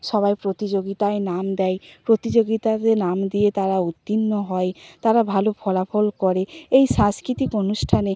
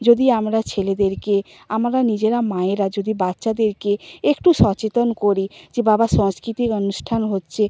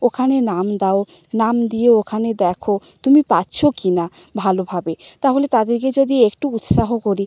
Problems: background sounds at intervals